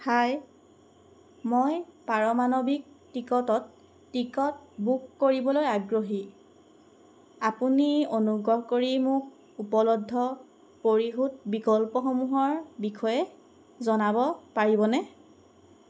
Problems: none marked